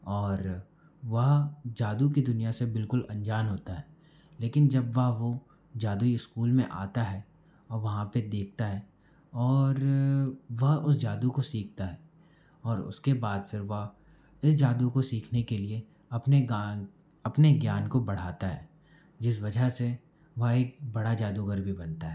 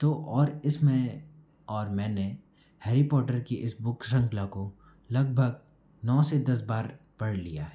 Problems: background sounds at intervals